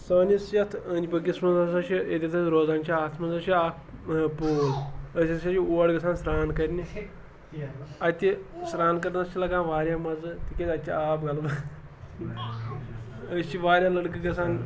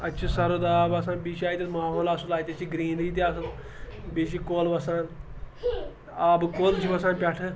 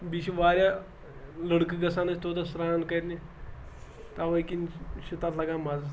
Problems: background sounds at intervals, background conversations at intervals